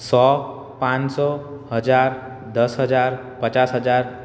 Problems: none marked